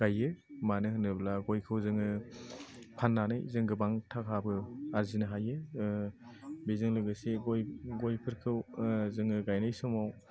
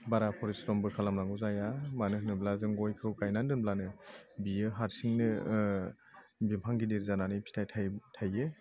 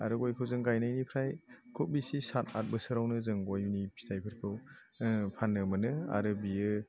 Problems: none marked